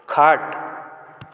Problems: constant background noise